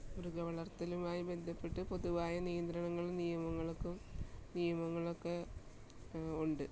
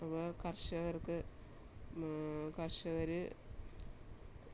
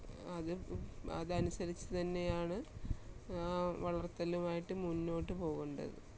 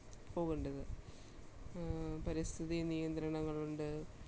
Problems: low volume